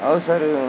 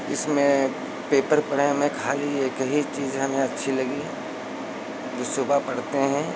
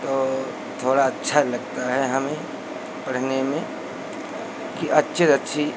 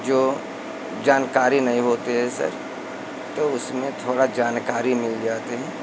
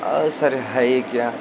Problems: constant background noise